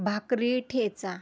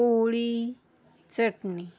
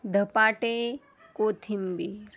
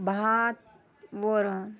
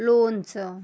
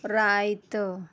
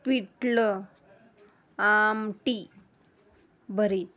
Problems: constant background noise, background conversations at intervals